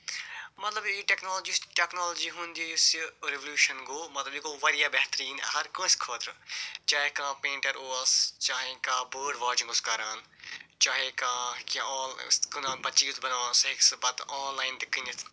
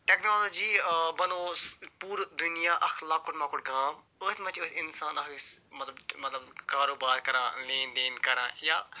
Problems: none marked